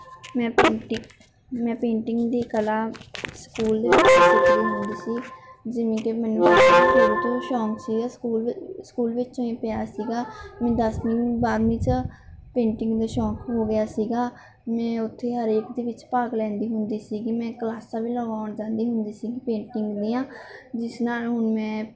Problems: background sounds at intervals